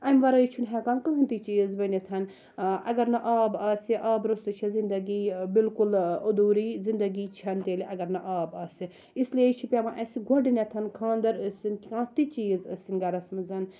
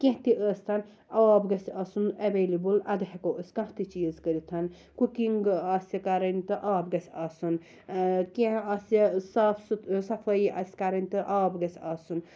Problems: none marked